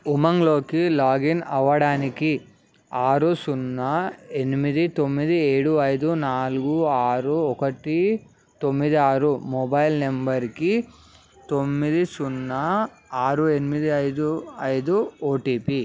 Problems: none marked